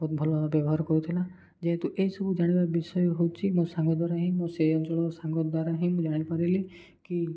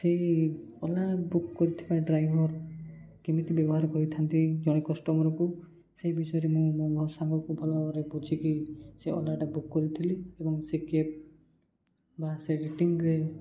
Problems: none marked